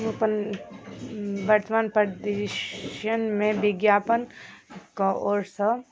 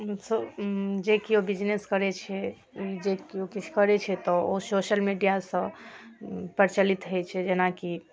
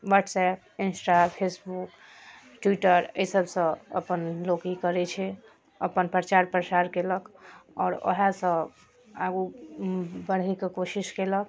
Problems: none marked